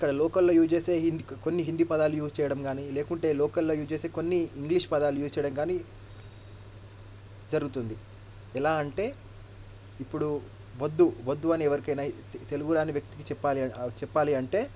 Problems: low volume